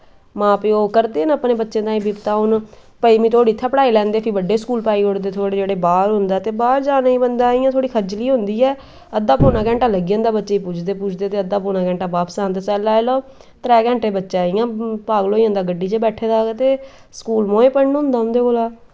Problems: none marked